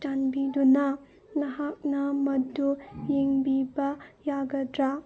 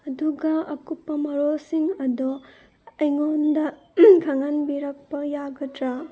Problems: background sounds at intervals